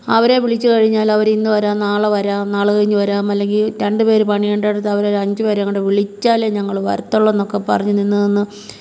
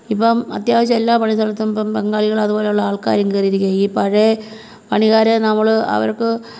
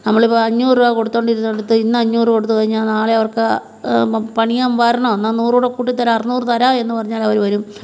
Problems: none marked